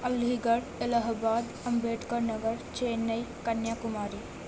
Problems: constant background noise, low volume